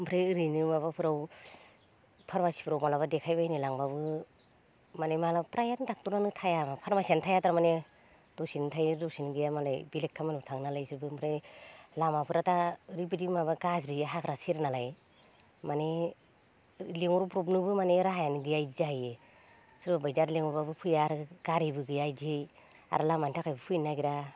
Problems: low volume